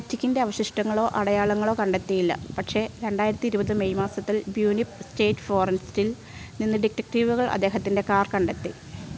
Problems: constant background noise